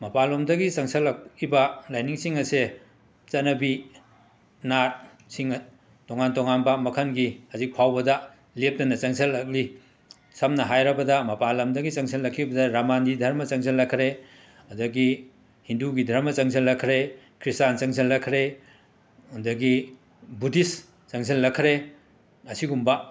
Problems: background sounds at intervals